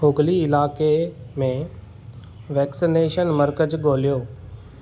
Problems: none marked